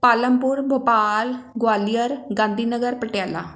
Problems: none marked